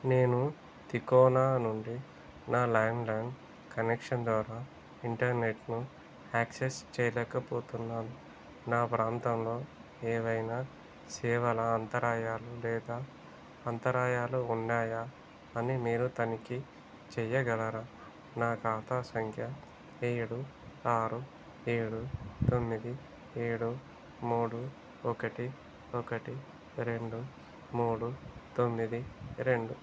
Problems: constant background noise